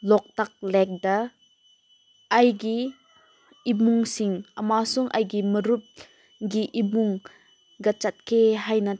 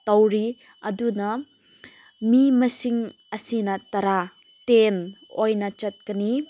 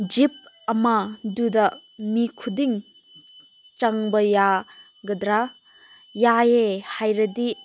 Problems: constant background noise